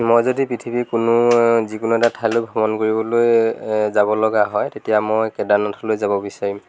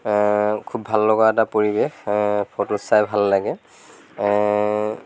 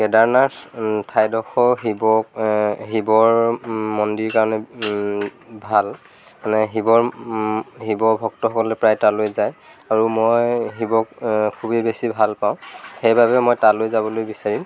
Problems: none marked